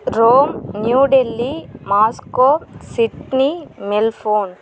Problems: constant background noise